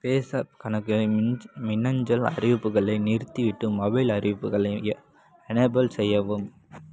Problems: background sounds at intervals